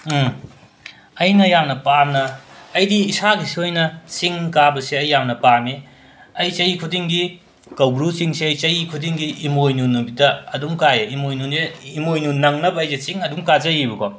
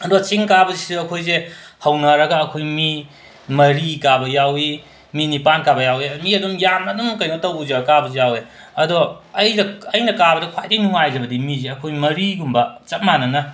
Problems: constant background noise